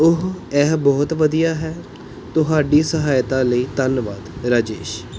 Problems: background sounds at intervals